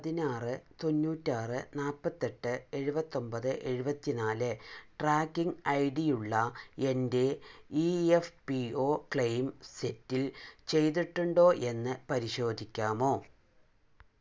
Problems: low volume